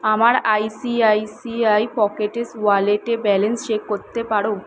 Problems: constant background noise